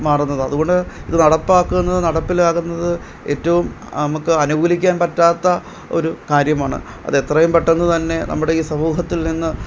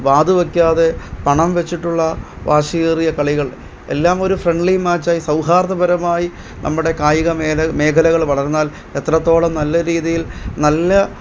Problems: background sounds at intervals